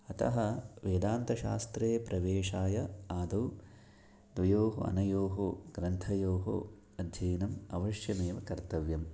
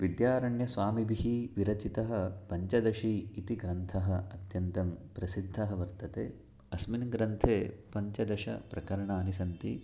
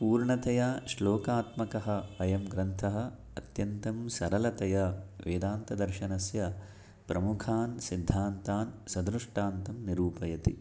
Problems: none marked